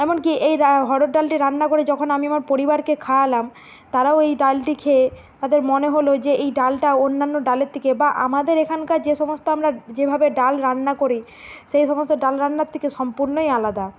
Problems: none marked